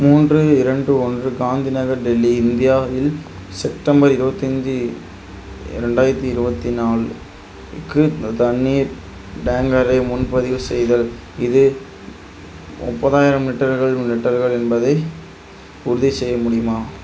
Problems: none marked